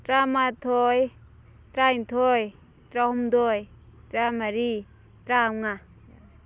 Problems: none marked